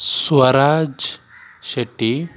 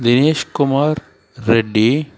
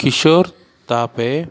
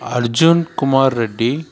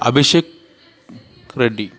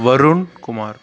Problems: continuous background conversations